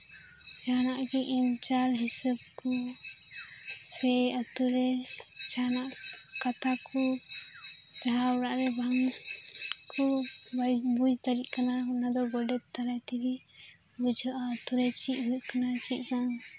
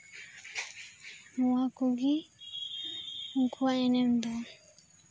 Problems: constant background noise